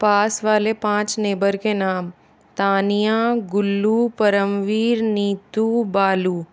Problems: none marked